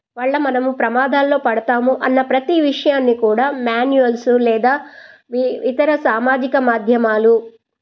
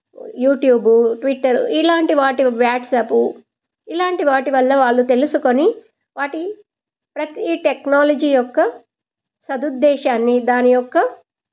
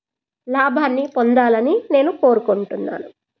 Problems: none marked